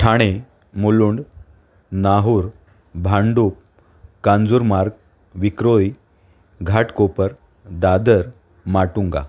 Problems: none marked